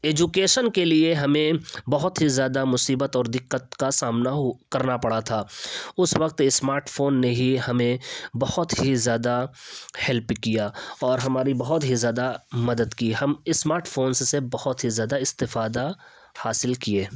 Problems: none marked